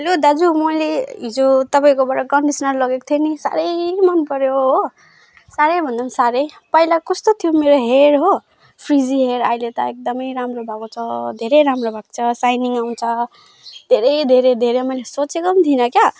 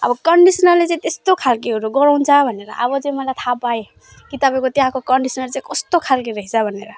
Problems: none marked